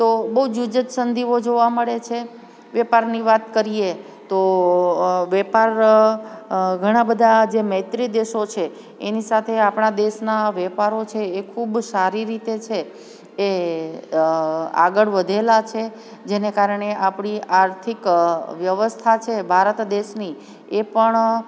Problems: background sounds at intervals